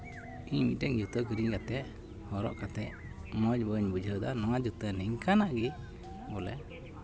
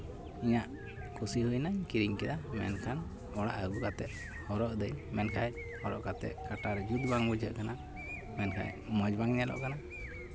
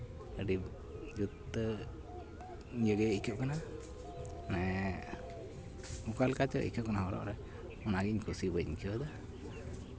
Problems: none marked